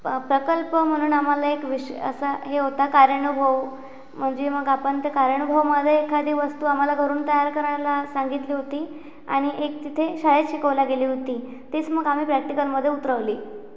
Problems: constant background noise